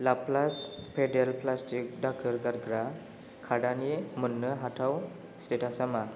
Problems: none marked